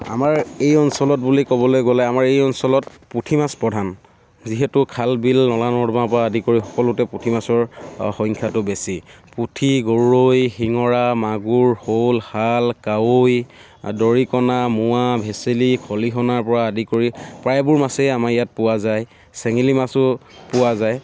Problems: none marked